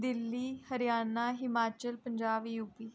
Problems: low volume